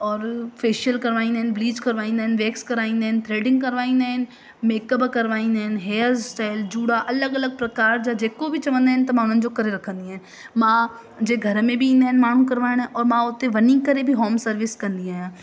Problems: constant background noise, echo